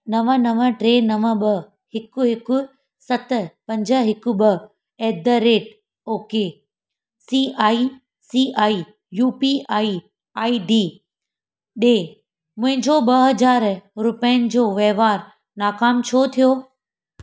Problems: none marked